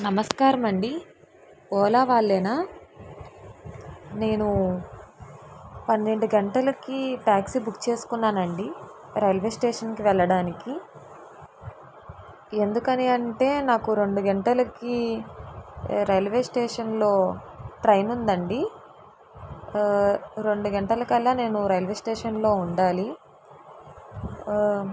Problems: constant background noise